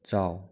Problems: low volume